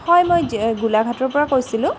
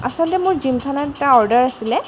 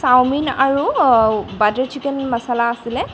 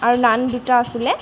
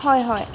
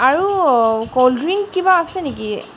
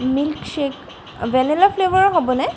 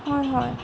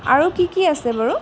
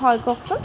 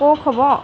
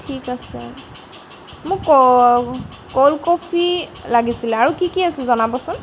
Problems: background sounds at intervals